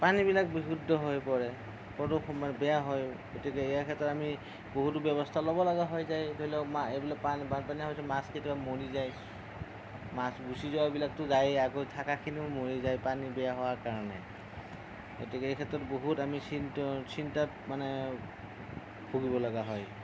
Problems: none marked